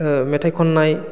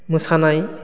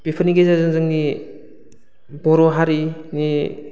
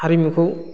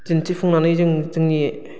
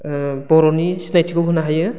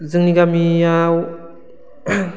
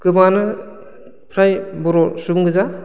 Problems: constant background noise